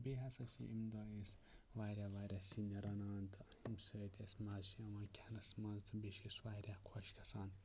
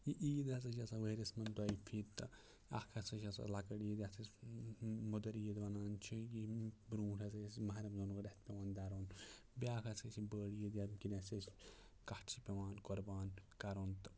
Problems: low volume